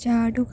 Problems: low volume